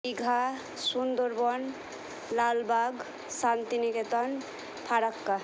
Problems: constant background noise